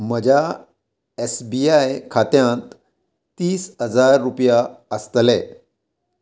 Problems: constant background noise